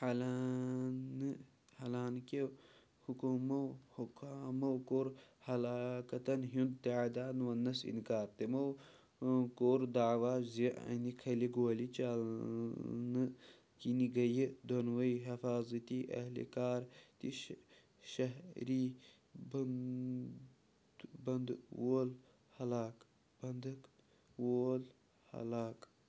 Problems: constant background noise